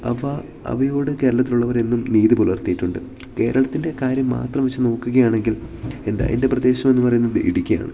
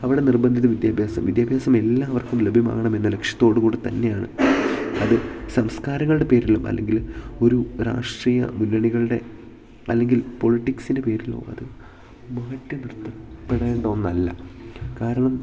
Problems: none marked